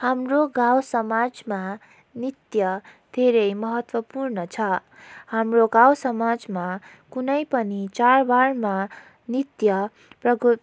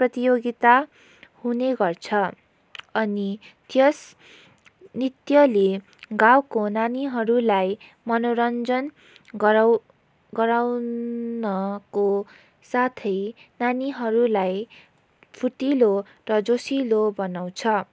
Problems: background sounds at intervals